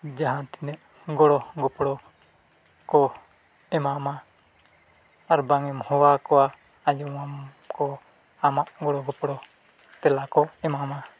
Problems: none marked